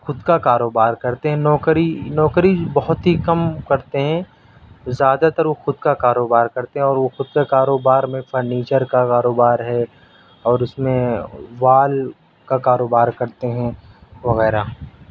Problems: background sounds at intervals